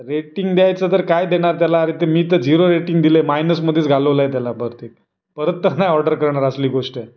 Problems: background sounds at intervals